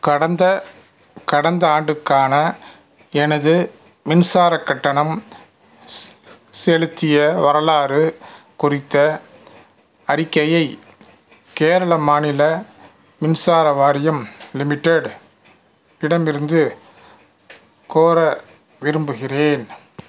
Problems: none marked